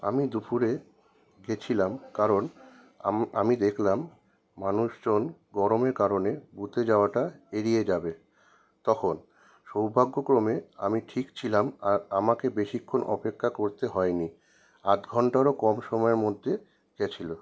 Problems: none marked